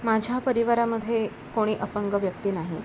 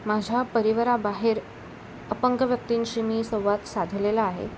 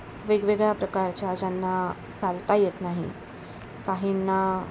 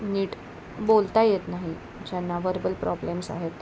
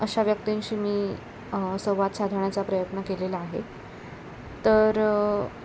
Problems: none marked